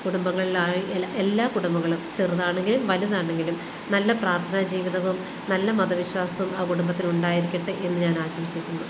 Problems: constant background noise